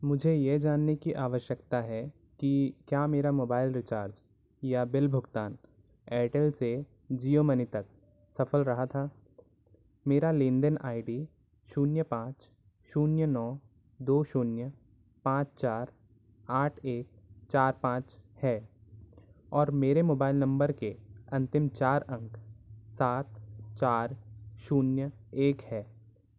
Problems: constant background noise